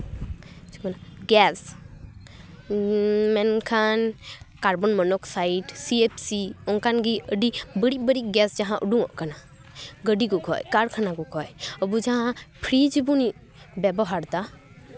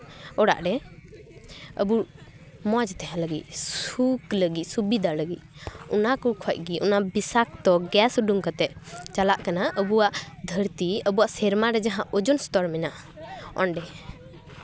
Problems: none marked